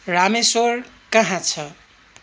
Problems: none marked